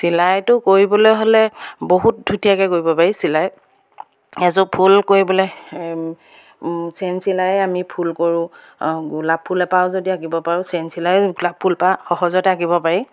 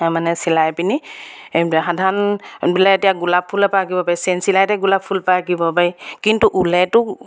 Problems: background sounds at intervals